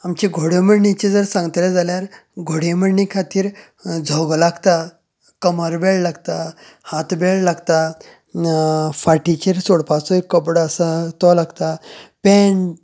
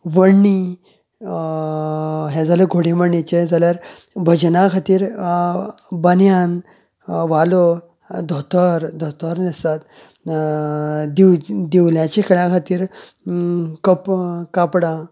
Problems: constant background noise